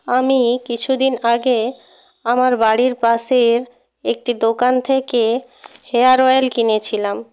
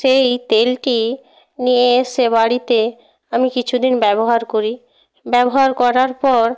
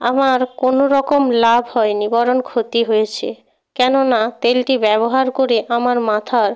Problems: background sounds at intervals